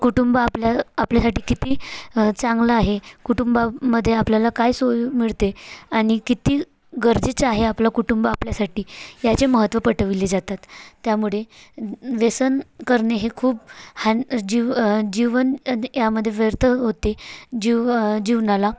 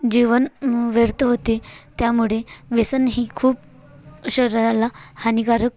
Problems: none marked